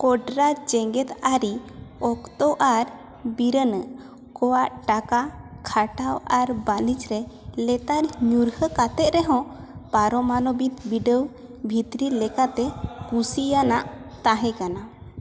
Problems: constant background noise, echo